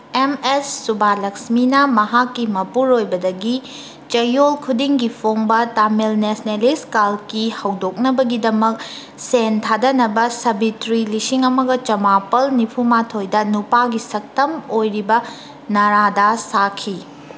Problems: background sounds at intervals